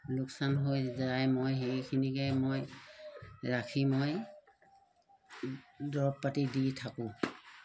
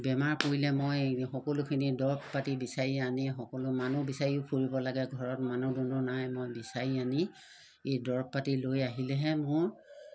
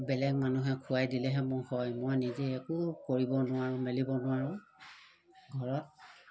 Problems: constant background noise